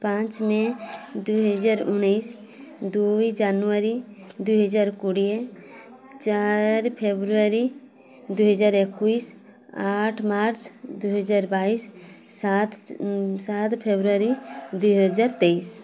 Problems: constant background noise